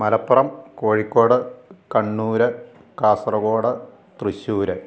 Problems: none marked